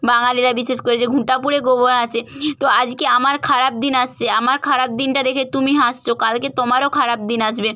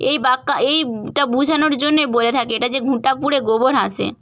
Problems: none marked